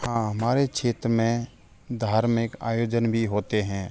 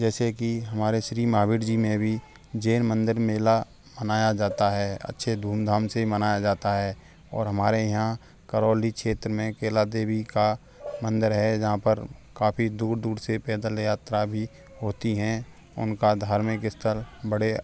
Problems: background sounds at intervals, background conversations at intervals